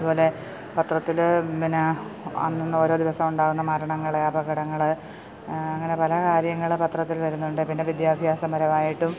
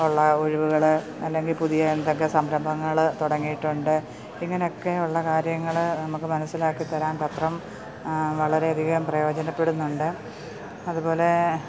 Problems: constant background noise